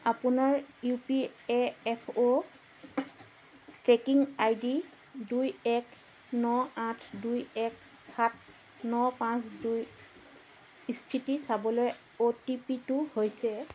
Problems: none marked